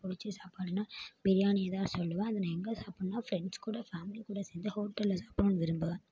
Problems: low volume